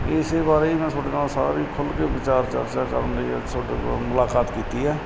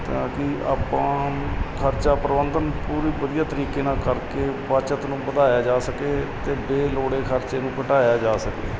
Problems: constant background noise